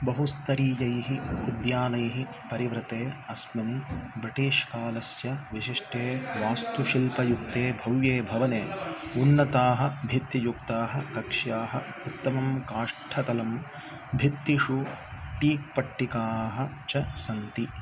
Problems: none marked